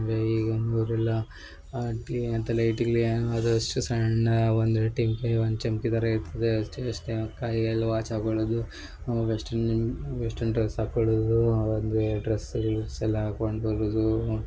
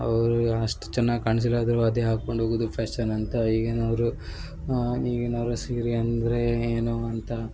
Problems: background sounds at intervals